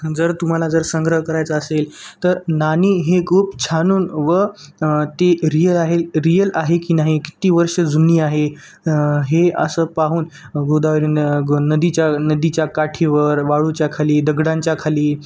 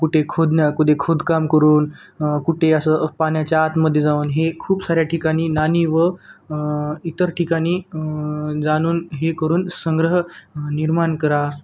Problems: background sounds at intervals